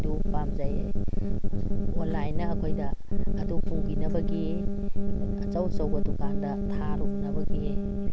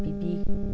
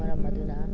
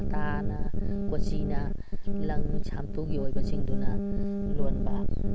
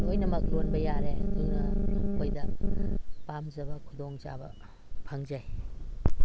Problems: constant background noise